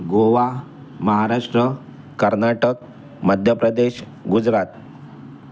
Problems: none marked